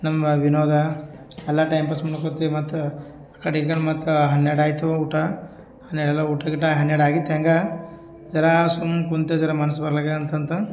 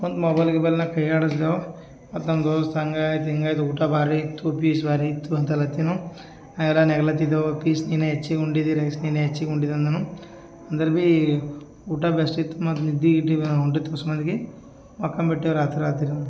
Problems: none marked